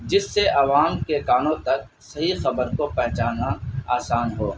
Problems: constant background noise